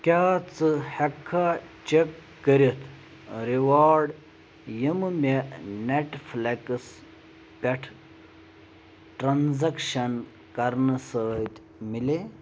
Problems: none marked